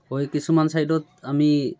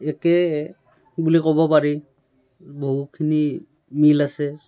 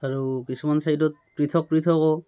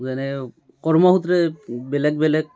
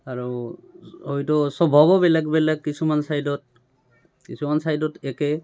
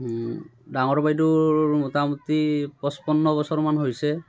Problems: constant background noise, background conversations at intervals